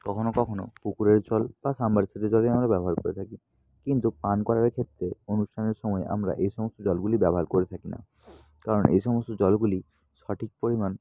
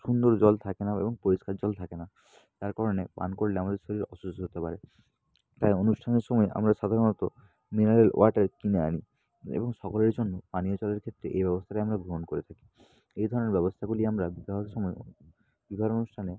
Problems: none marked